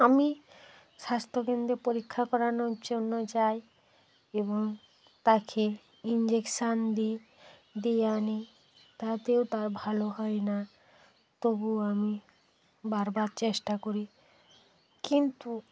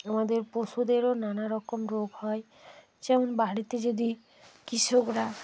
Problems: constant background noise